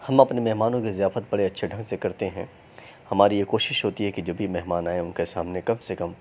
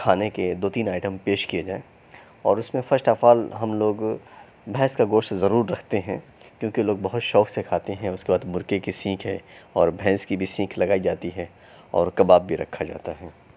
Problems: none marked